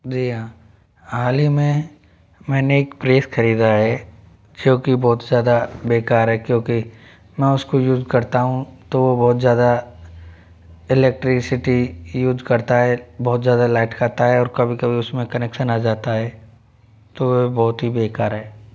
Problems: background sounds at intervals